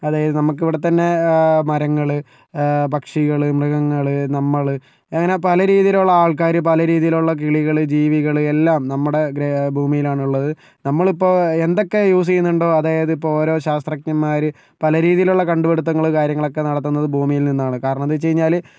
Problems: none marked